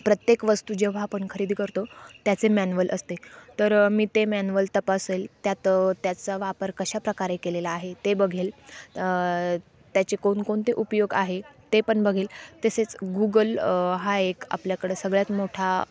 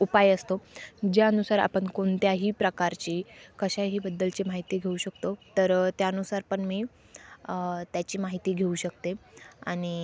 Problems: constant background noise